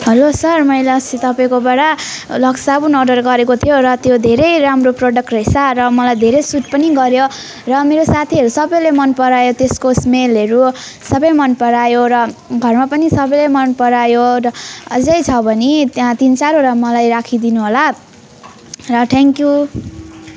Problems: none marked